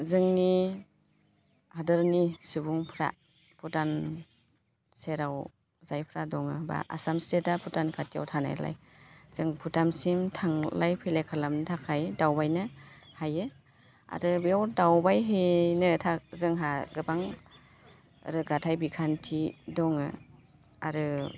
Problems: constant background noise